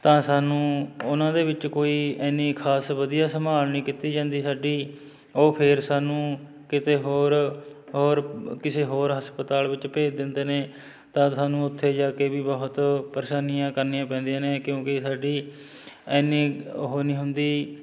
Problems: background sounds at intervals